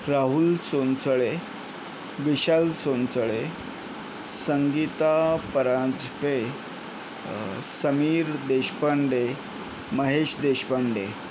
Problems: constant background noise